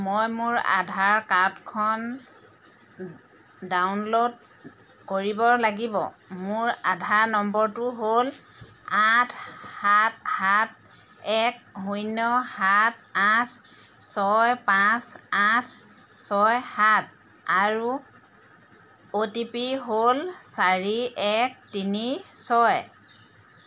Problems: constant background noise